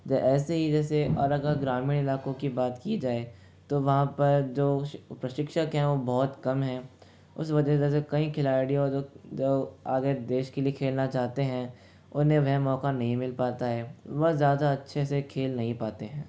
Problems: background sounds at intervals, low volume